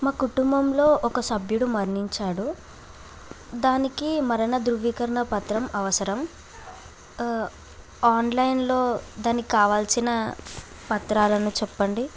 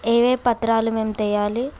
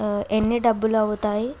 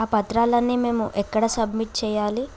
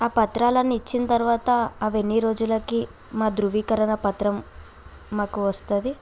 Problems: none marked